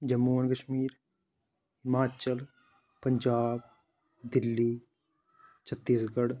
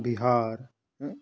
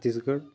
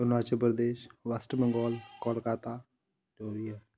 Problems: none marked